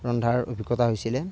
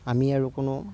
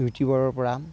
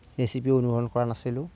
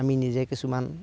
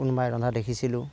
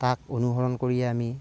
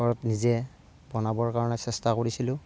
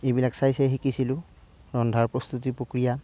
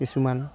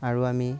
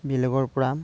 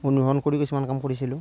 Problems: none marked